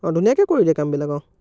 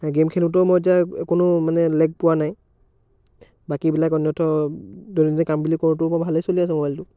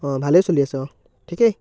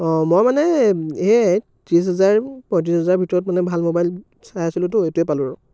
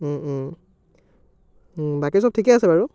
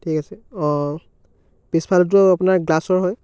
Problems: background sounds at intervals, background conversations at intervals